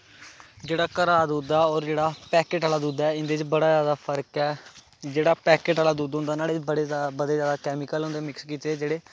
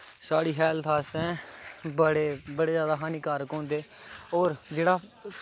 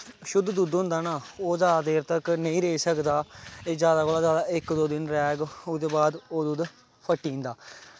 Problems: constant background noise